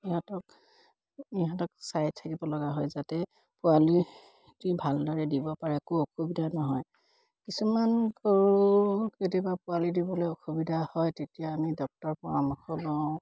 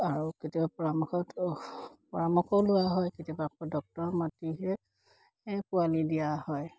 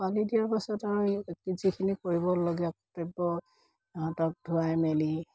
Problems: none marked